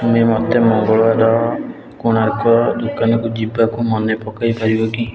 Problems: constant background noise